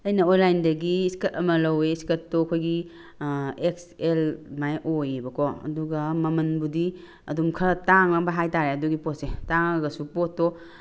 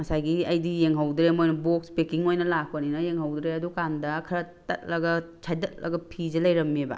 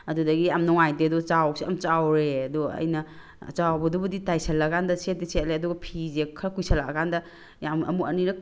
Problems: background sounds at intervals